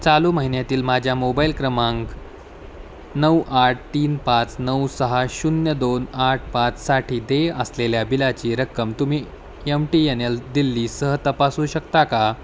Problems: background sounds at intervals